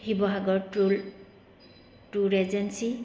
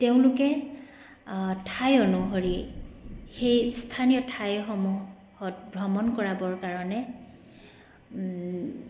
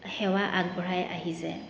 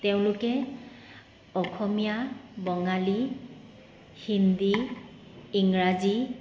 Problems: none marked